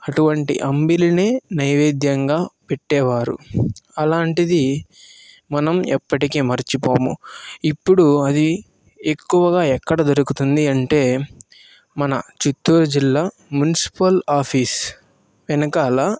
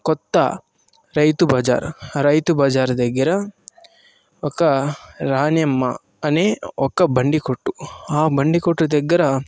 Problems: none marked